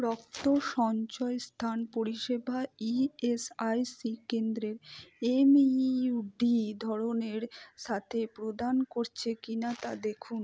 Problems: low volume